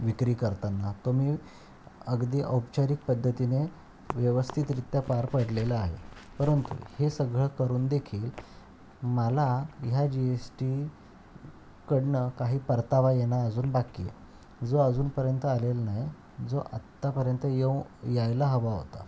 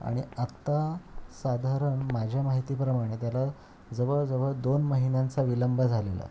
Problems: constant background noise